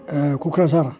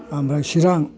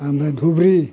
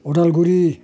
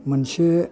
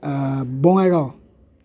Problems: none marked